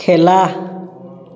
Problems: echo